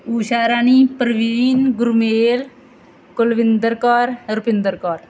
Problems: background sounds at intervals